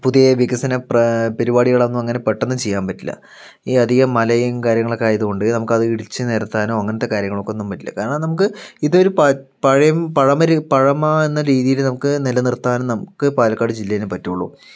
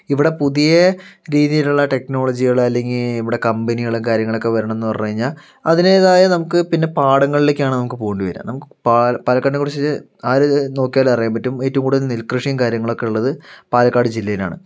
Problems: none marked